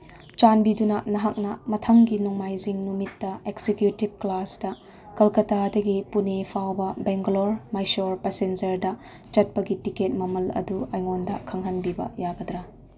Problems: none marked